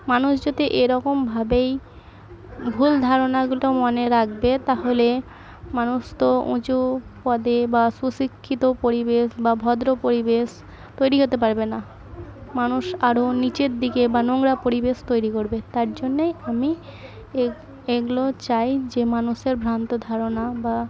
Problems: none marked